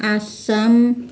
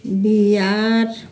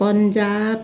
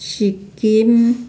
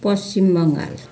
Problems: constant background noise